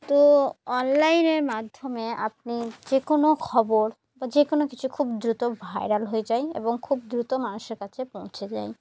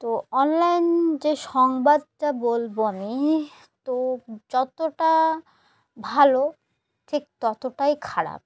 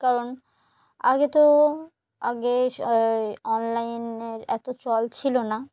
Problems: background sounds at intervals